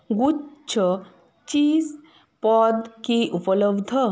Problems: background sounds at intervals